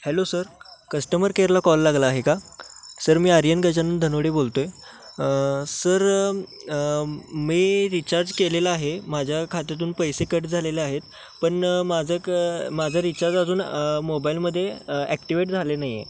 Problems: none marked